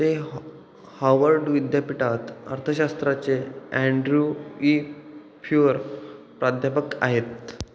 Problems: none marked